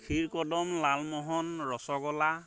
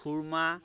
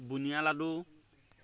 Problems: background sounds at intervals